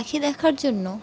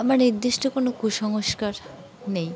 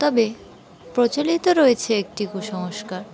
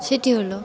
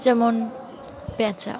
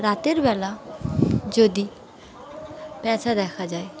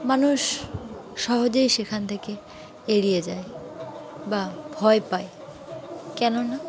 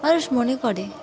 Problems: constant background noise, continuous background conversations